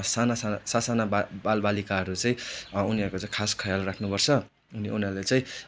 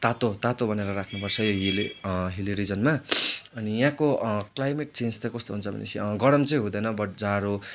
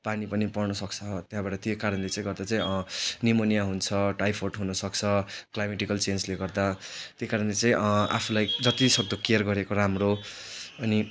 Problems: none marked